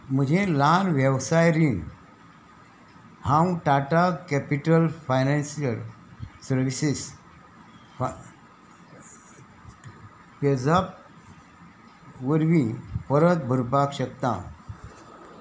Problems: constant background noise